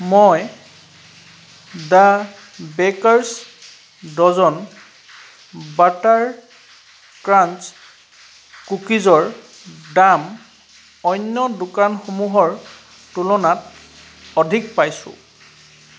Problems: background sounds at intervals